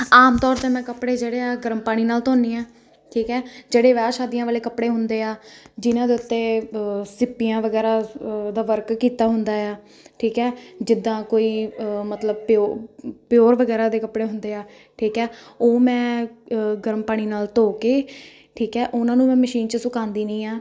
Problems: none marked